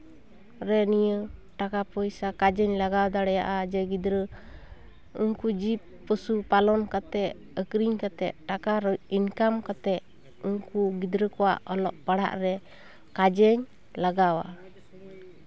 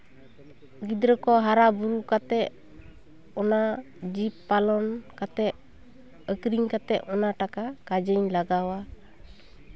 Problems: background sounds at intervals, background conversations at intervals